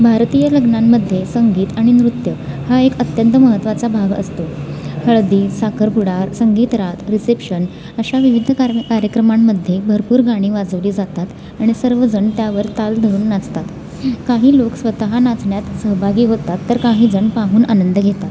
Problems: none marked